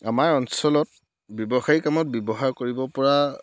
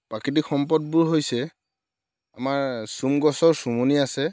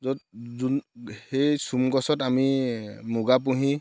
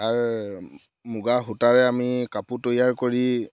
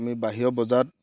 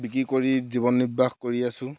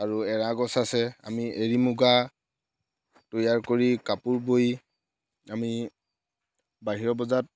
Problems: background sounds at intervals